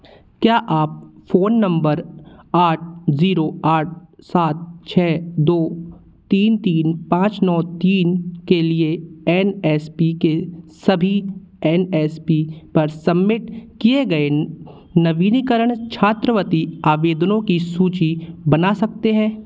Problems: constant background noise, background conversations at intervals